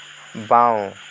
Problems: constant background noise